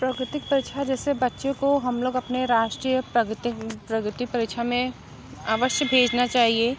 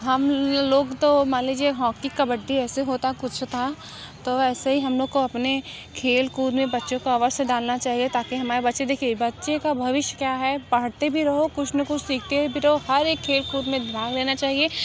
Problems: constant background noise, continuous background conversations